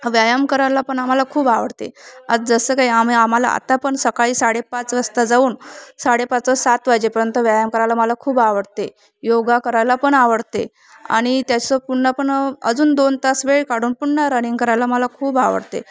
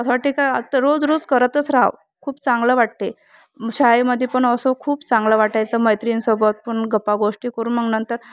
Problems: constant background noise, background conversations at intervals